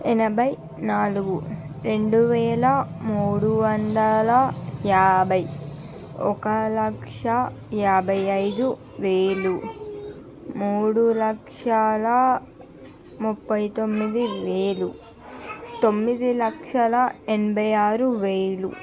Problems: constant background noise